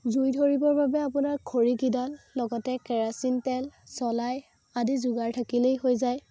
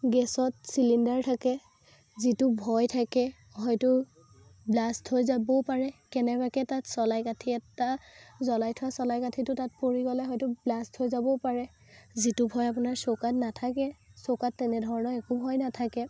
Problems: constant background noise